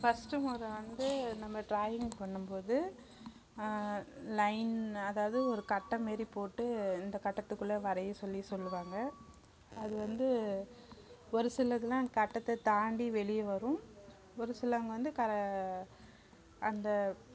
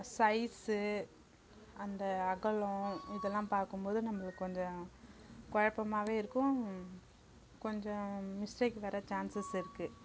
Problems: continuous background conversations